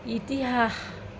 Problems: none marked